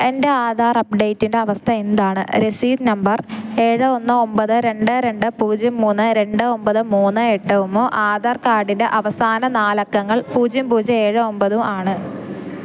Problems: background sounds at intervals